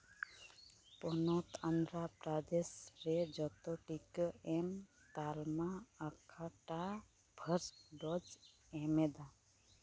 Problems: background sounds at intervals, low volume